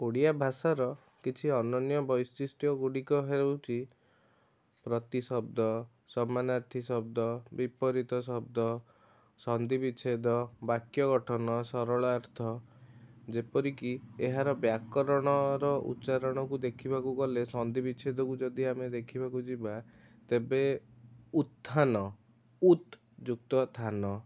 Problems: constant background noise, continuous background conversations